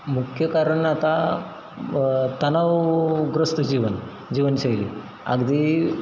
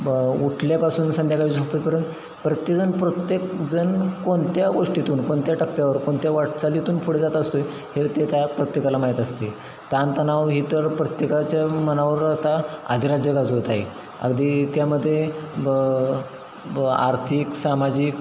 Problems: constant background noise, background conversations at intervals